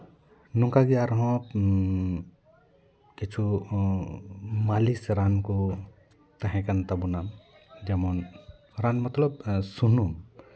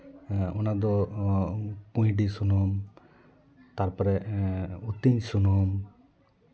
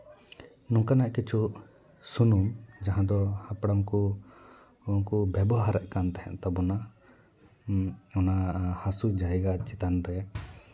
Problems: continuous background conversations